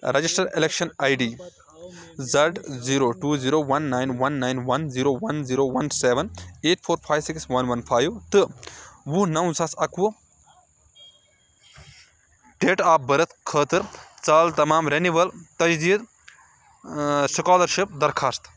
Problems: none marked